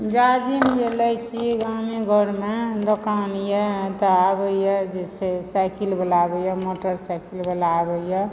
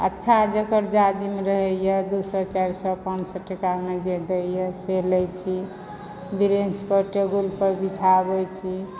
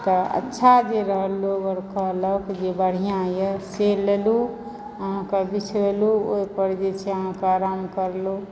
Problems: background sounds at intervals